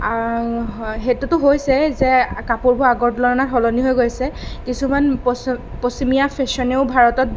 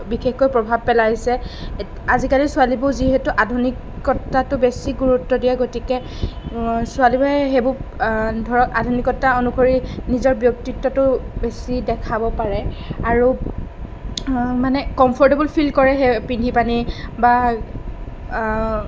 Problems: none marked